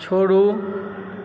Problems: background sounds at intervals